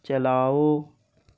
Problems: constant background noise